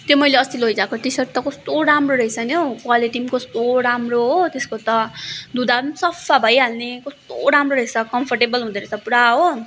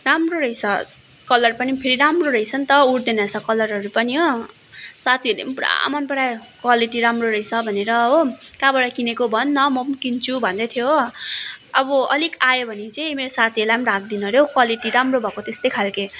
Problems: constant background noise